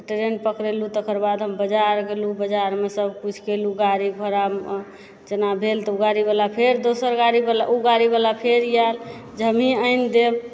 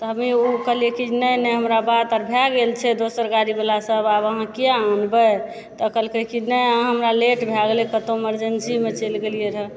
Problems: background sounds at intervals, background conversations at intervals